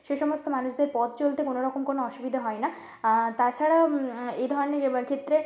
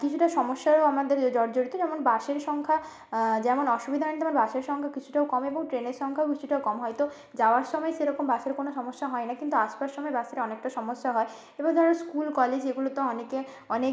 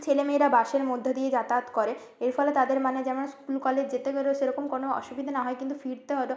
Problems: background sounds at intervals